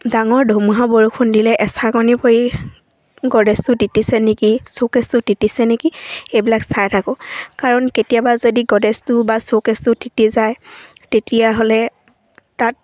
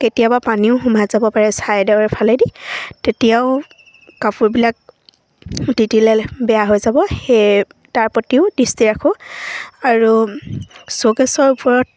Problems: none marked